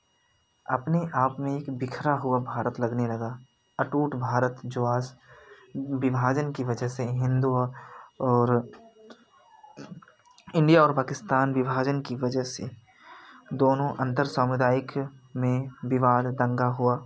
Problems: none marked